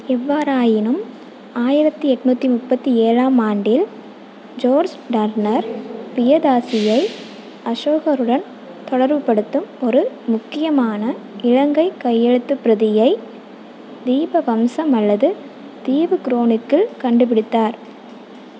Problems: constant background noise